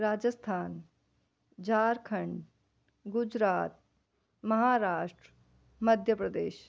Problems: none marked